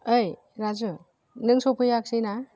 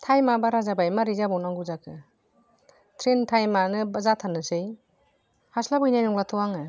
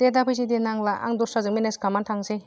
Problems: low volume